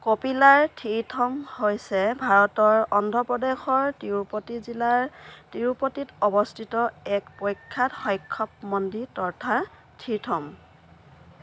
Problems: constant background noise